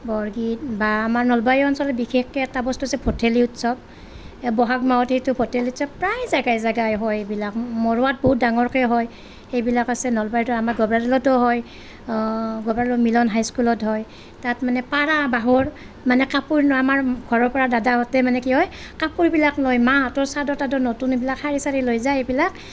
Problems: none marked